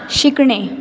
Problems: constant background noise